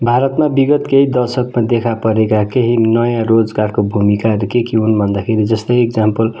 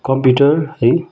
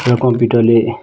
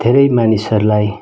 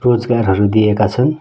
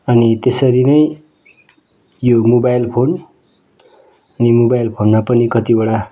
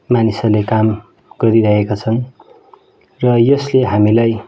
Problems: background sounds at intervals